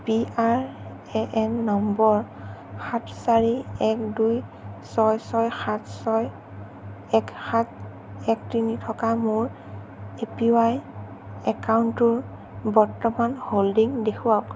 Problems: constant background noise